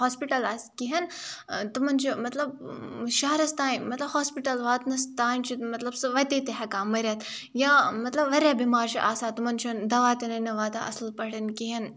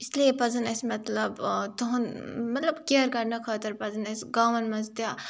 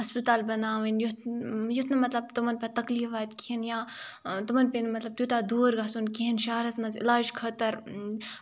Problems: none marked